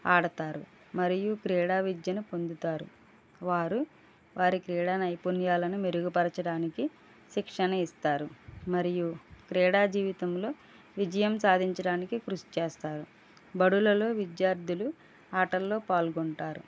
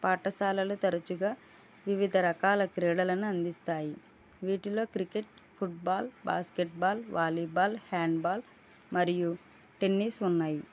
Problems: low volume